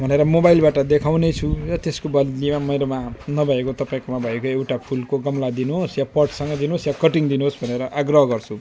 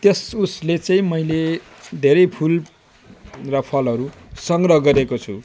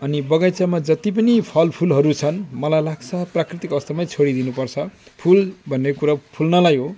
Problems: none marked